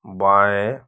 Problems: none marked